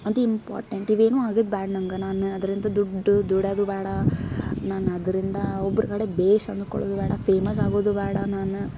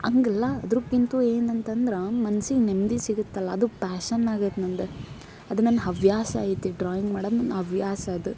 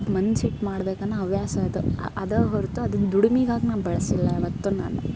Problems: background sounds at intervals